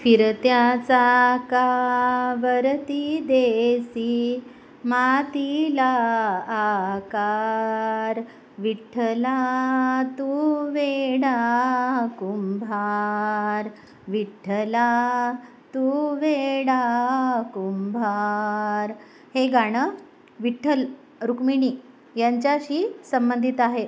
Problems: background sounds at intervals